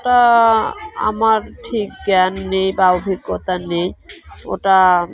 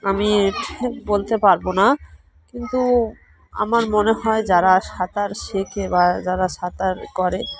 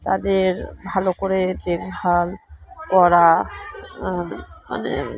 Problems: constant background noise, continuous background conversations